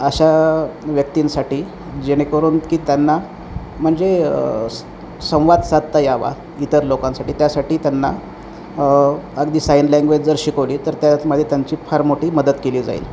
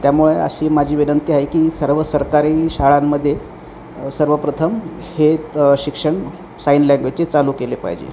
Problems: none marked